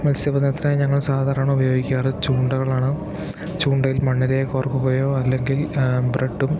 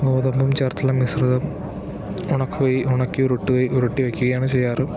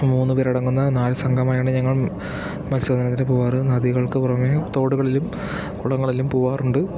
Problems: constant background noise